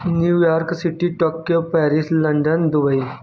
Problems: background sounds at intervals